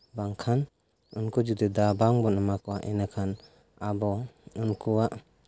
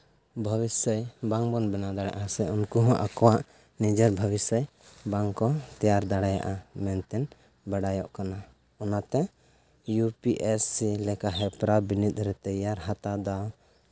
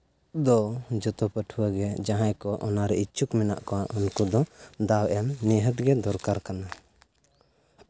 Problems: none marked